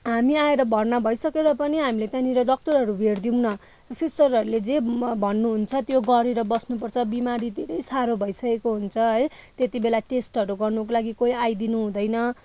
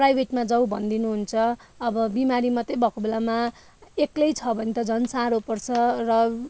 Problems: none marked